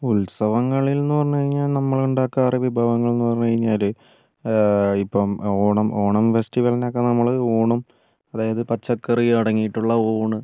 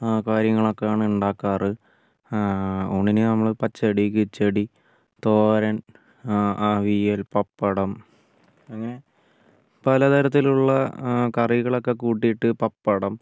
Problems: low volume